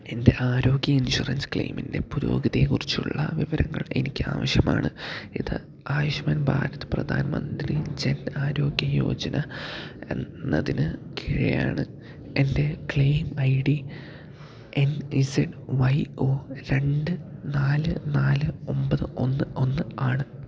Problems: low volume